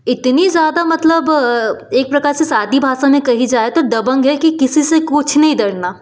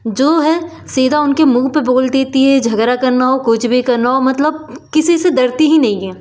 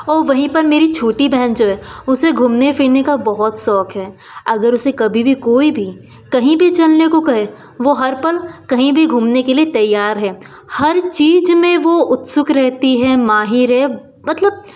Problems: constant background noise, background conversations at intervals